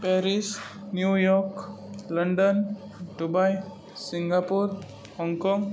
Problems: none marked